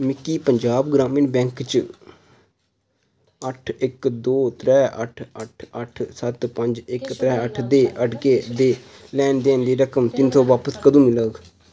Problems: constant background noise